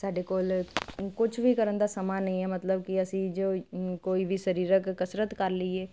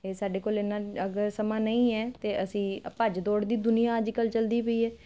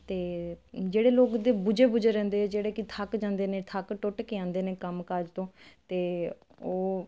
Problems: none marked